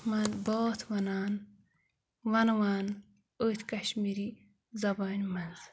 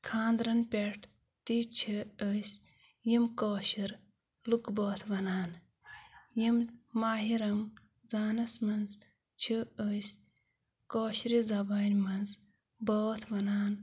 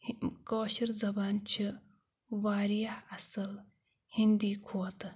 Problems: background sounds at intervals